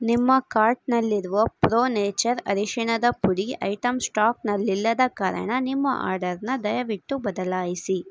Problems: none marked